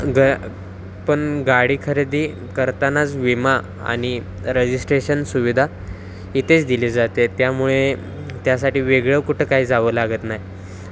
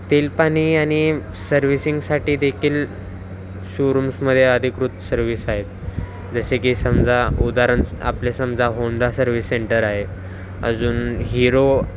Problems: constant background noise, background conversations at intervals